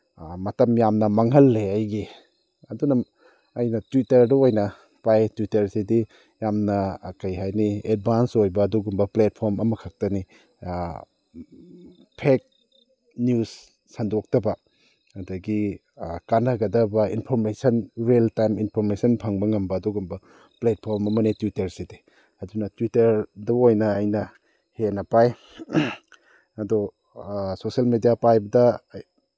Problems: none marked